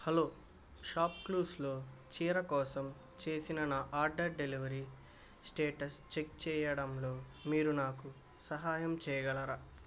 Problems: background sounds at intervals